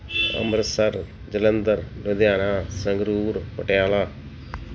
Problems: background sounds at intervals